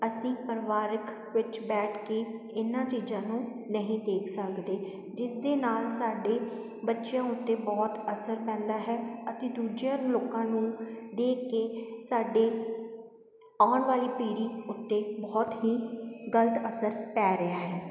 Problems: constant background noise